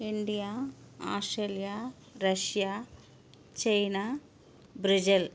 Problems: none marked